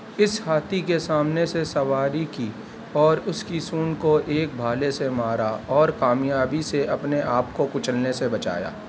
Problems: background sounds at intervals